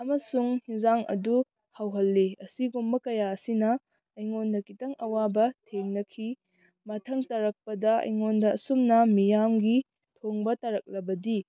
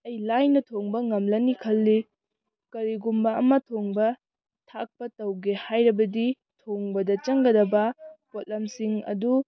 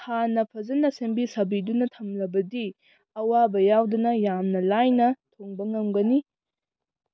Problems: background conversations at intervals